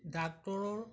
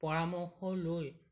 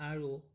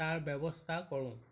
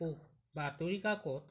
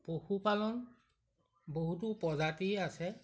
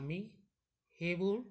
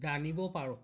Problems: background sounds at intervals